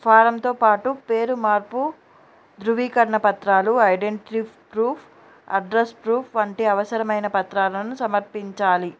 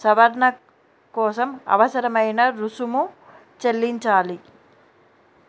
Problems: background sounds at intervals